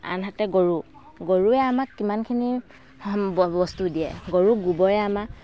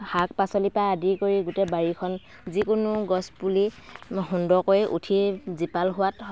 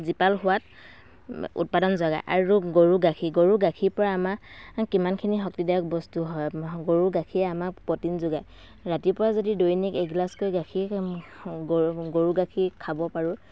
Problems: constant background noise